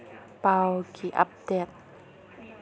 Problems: low volume